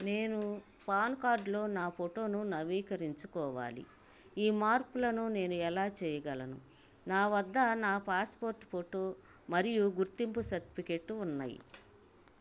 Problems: constant background noise